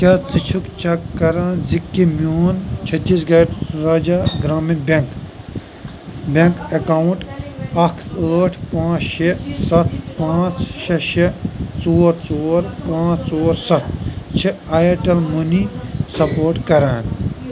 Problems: constant background noise